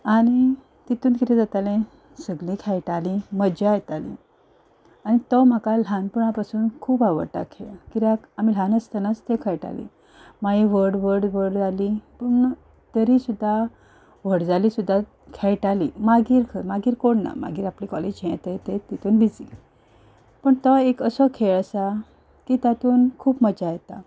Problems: none marked